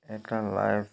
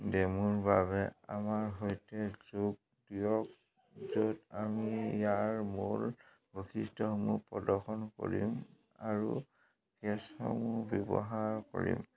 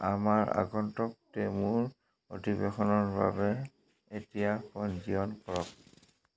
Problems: constant background noise